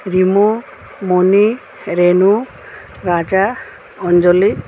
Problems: none marked